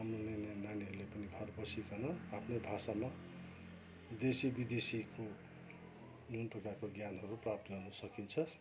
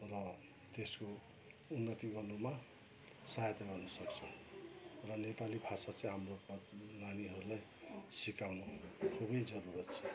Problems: background sounds at intervals, low volume